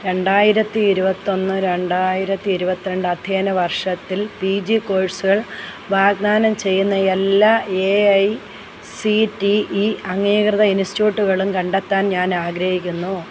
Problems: constant background noise